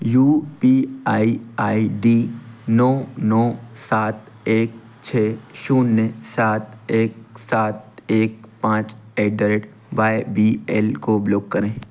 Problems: none marked